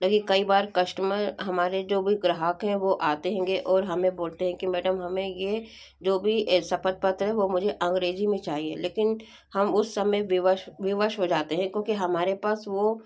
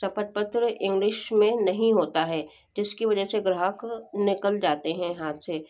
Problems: background sounds at intervals